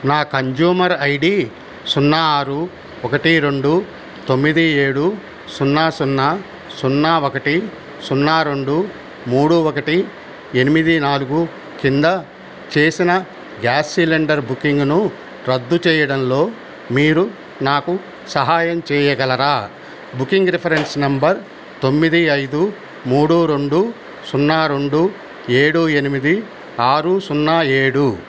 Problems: constant background noise